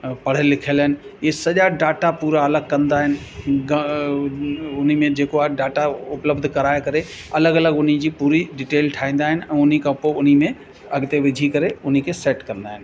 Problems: constant background noise